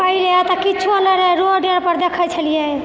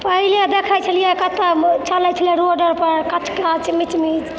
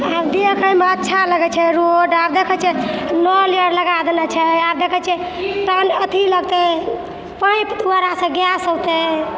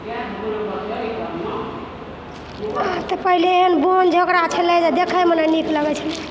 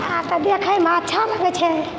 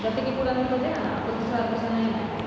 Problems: background sounds at intervals